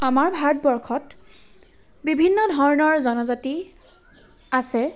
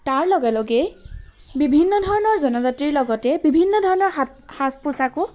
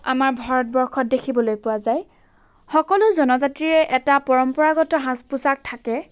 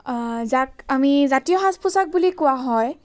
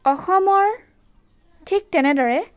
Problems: background sounds at intervals